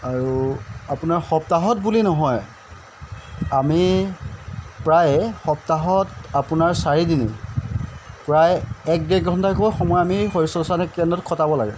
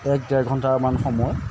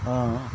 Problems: constant background noise